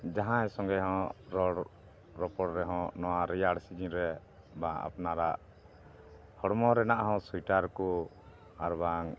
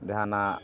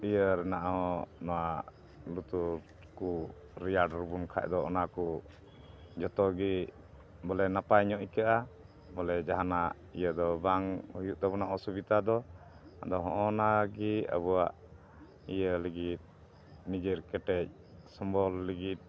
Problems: constant background noise